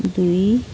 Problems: continuous background conversations